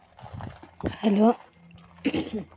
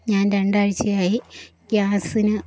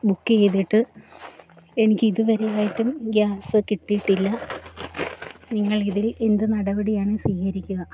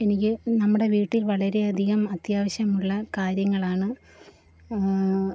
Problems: background sounds at intervals